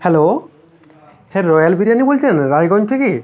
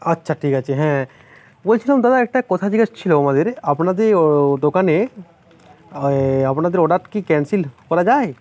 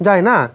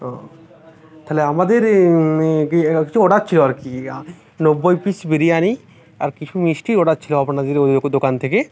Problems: none marked